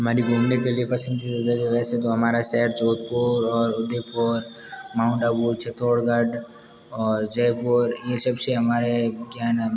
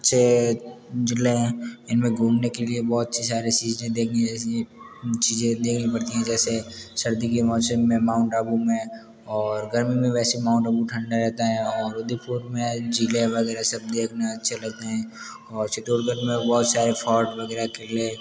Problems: background sounds at intervals, background conversations at intervals